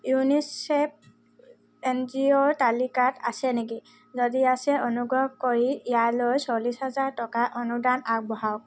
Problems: background sounds at intervals